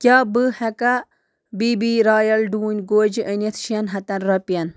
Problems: background sounds at intervals